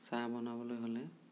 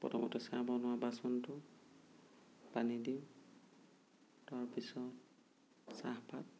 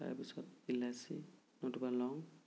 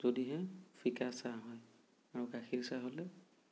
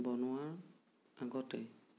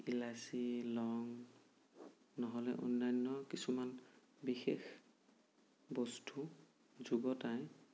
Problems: low volume